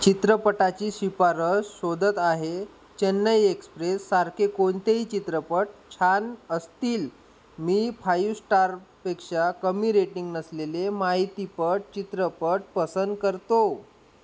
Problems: constant background noise